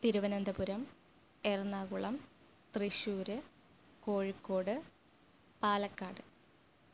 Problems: low volume